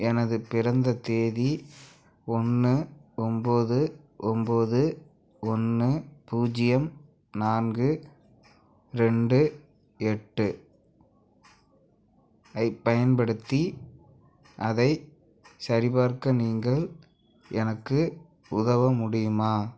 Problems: background sounds at intervals